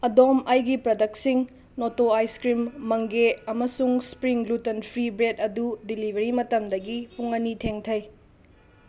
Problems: constant background noise